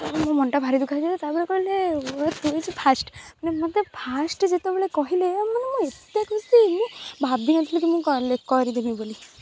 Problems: constant background noise